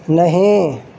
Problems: constant background noise